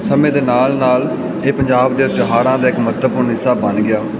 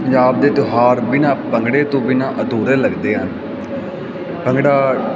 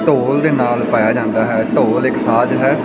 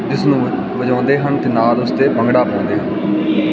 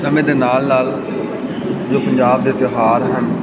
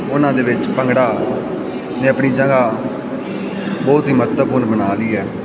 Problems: constant background noise